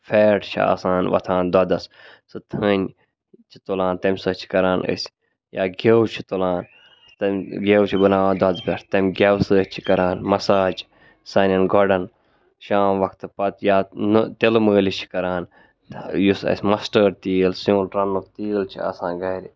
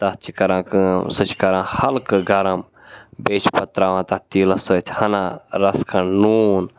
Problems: background sounds at intervals